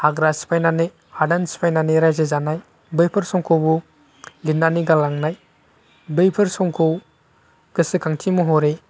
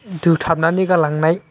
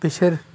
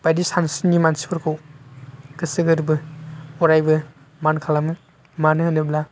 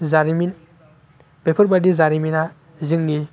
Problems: none marked